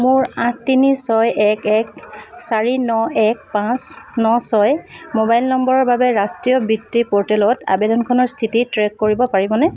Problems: constant background noise